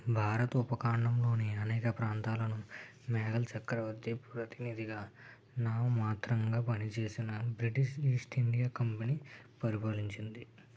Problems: low volume